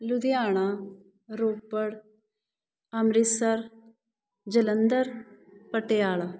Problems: background conversations at intervals